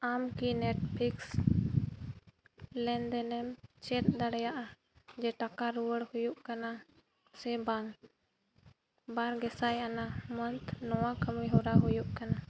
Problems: background sounds at intervals, low volume